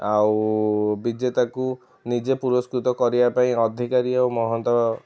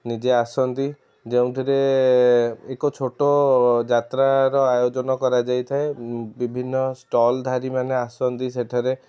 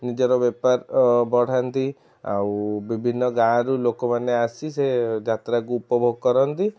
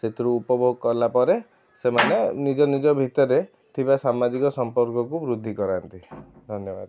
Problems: background sounds at intervals, background conversations at intervals